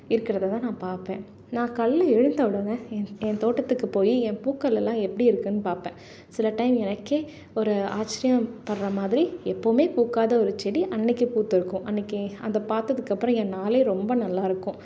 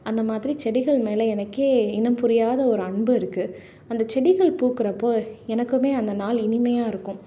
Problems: none marked